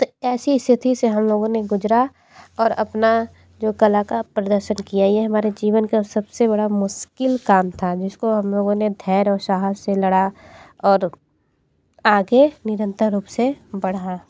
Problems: none marked